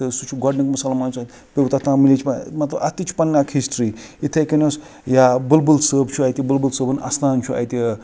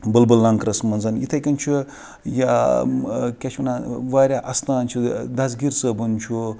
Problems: background sounds at intervals, background conversations at intervals